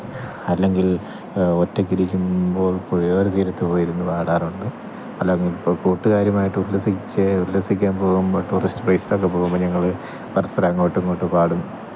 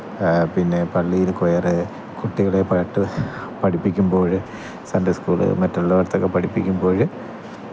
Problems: none marked